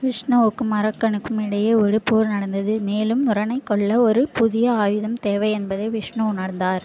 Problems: none marked